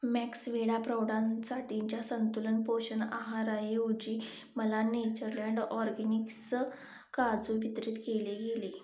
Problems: constant background noise